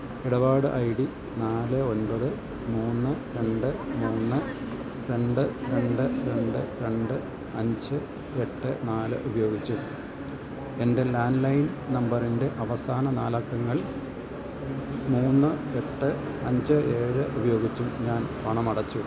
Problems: none marked